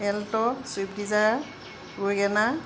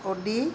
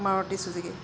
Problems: background sounds at intervals